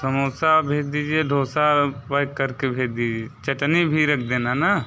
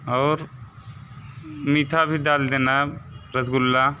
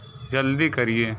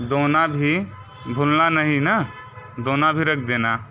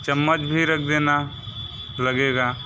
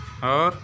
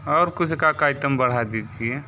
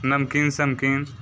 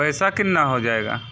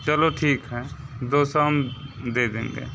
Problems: constant background noise